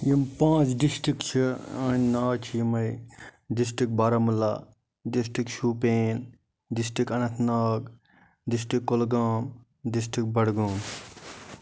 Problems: none marked